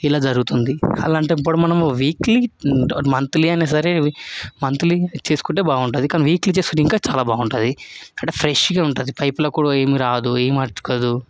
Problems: none marked